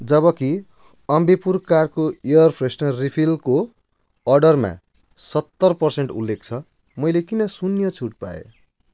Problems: none marked